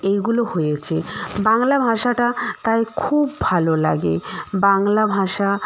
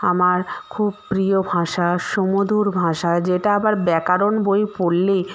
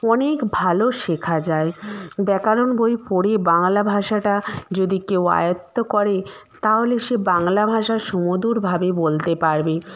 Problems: background sounds at intervals